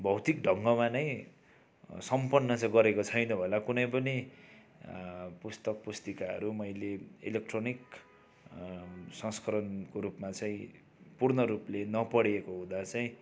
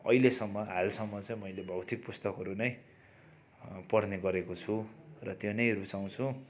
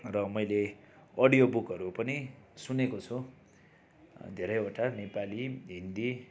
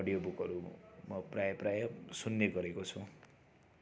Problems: background sounds at intervals